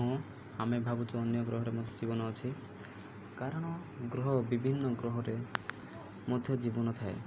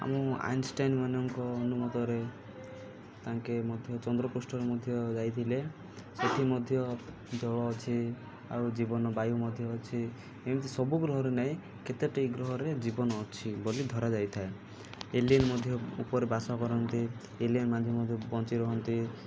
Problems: low volume